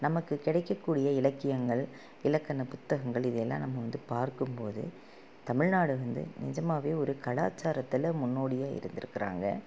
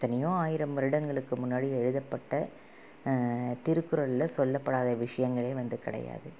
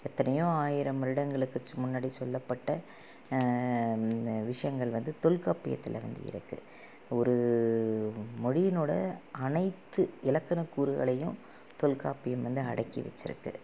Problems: low volume